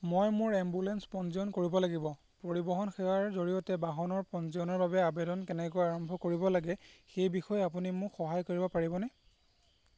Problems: constant background noise